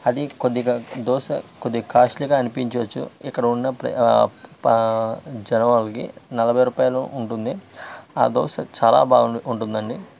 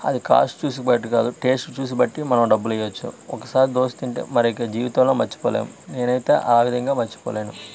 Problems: constant background noise